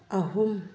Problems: low volume